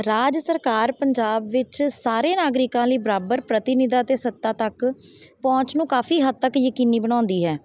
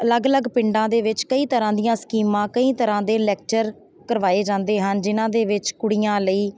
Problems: none marked